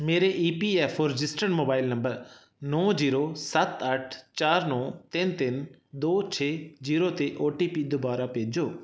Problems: none marked